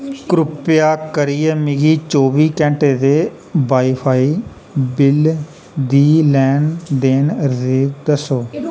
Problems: none marked